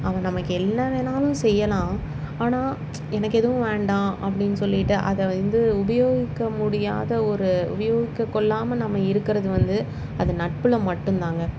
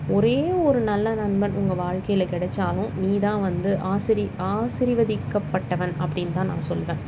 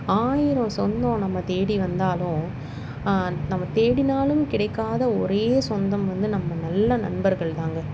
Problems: constant background noise